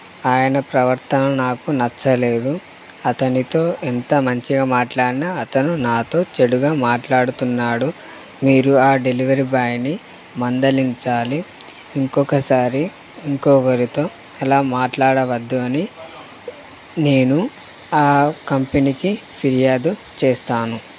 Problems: constant background noise